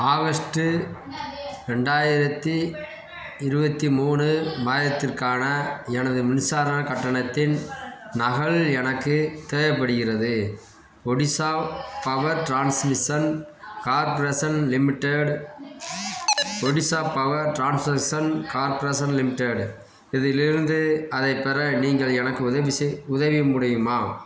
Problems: background sounds at intervals, background conversations at intervals